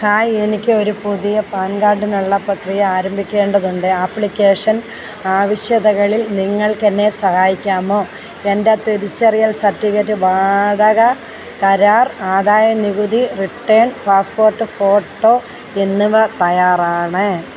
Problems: none marked